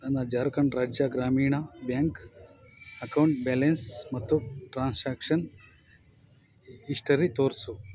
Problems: background sounds at intervals